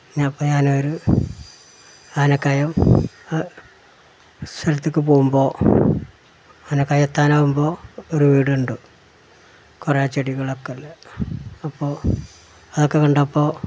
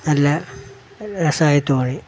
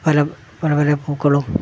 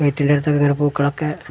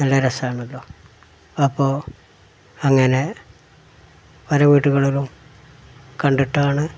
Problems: background sounds at intervals